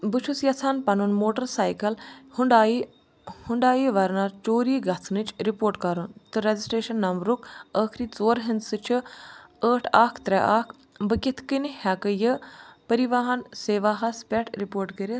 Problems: none marked